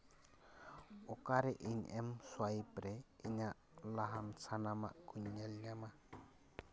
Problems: background sounds at intervals